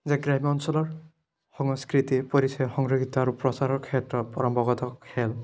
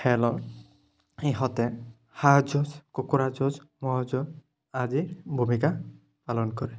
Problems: none marked